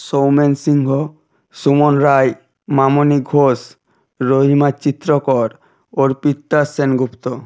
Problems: constant background noise